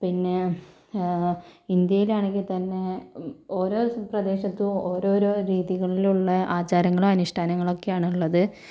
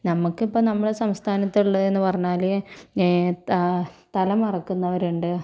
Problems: none marked